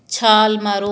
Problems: none marked